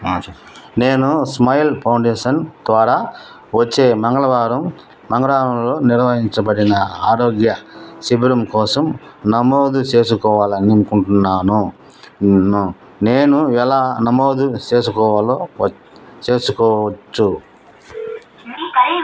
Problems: background conversations at intervals